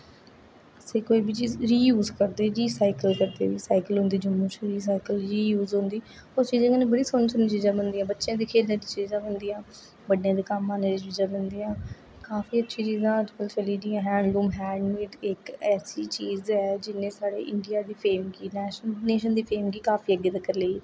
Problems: constant background noise, echo, low volume